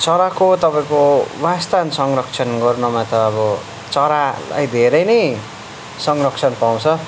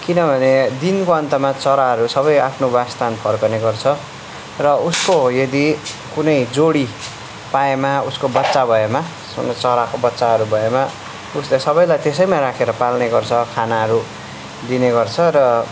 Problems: background conversations at intervals